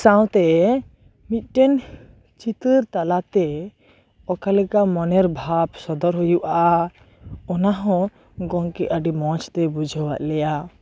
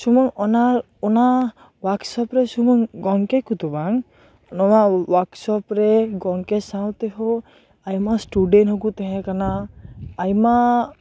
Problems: constant background noise, continuous background conversations